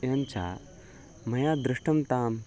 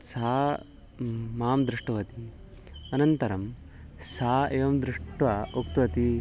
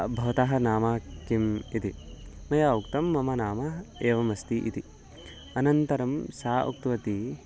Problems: background sounds at intervals